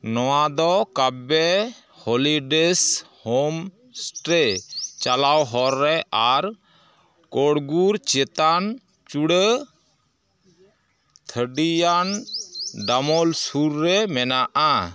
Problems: background sounds at intervals, continuous background conversations